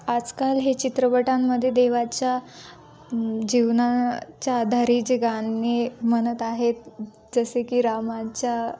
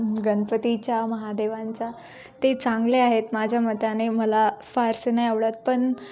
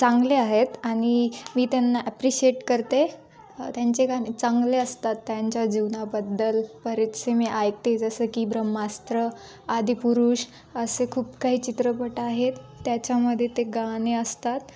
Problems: none marked